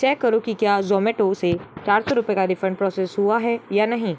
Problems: none marked